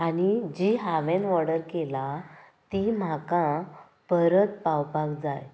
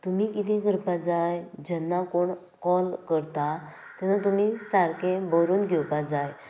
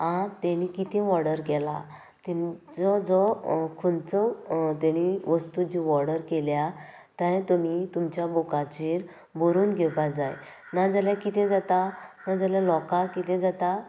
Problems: constant background noise